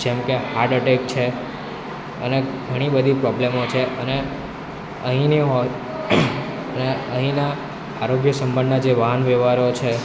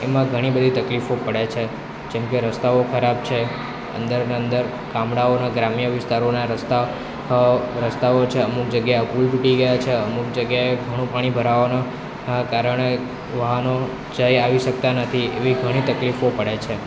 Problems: continuous background conversations